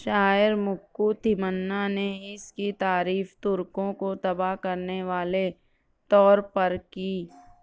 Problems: none marked